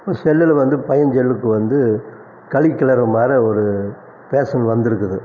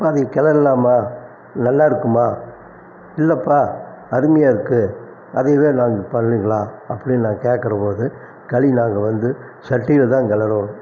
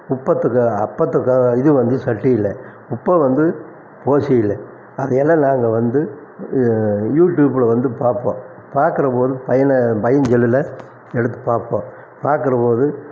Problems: constant background noise